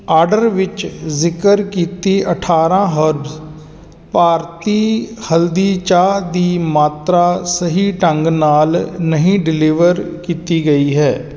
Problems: none marked